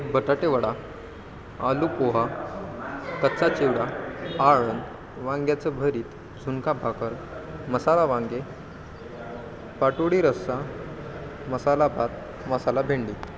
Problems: constant background noise